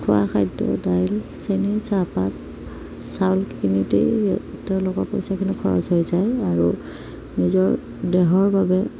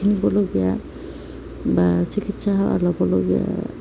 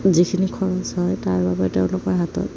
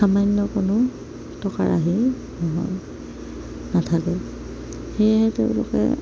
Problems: none marked